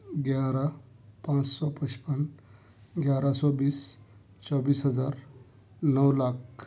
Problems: none marked